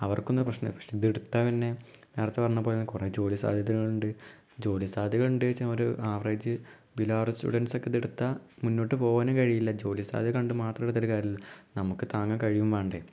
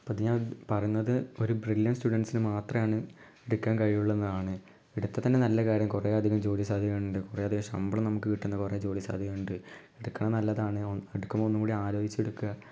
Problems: low volume